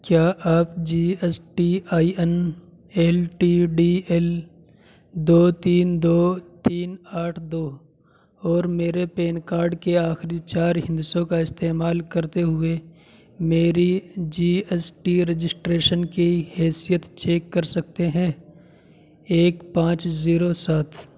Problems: constant background noise